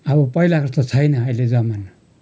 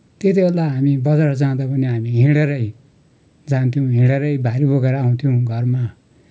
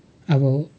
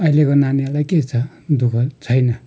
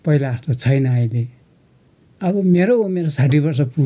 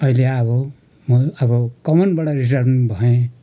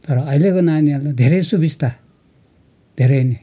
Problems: none marked